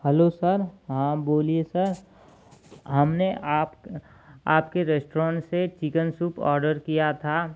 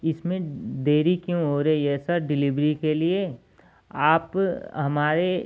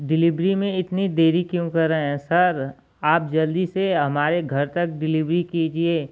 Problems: constant background noise